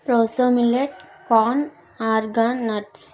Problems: none marked